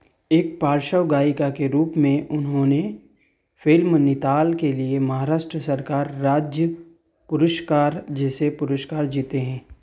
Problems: background sounds at intervals